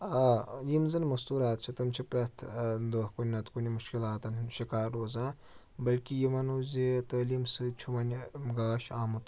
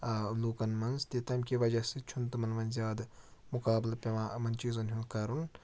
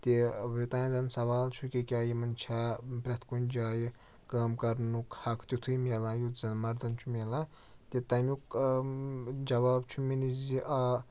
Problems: low volume